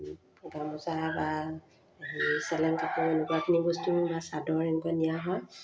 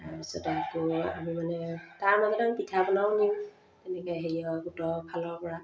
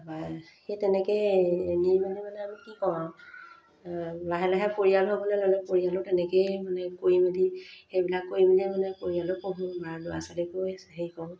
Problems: none marked